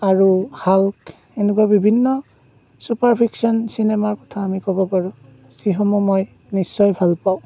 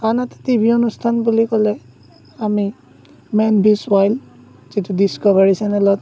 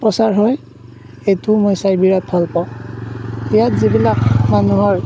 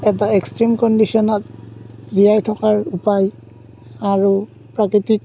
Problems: background sounds at intervals